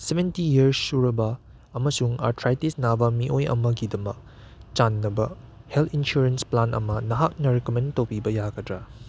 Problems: background sounds at intervals